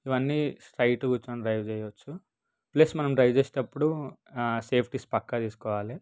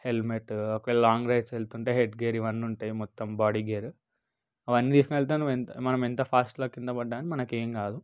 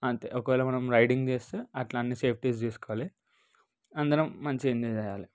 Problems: none marked